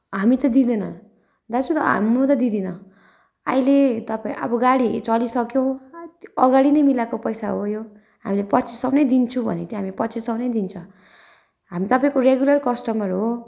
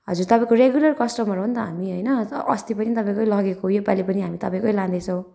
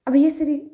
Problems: background sounds at intervals